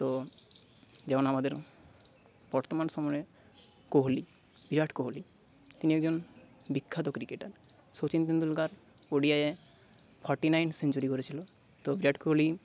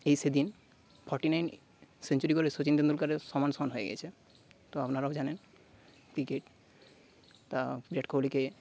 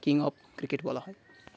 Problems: constant background noise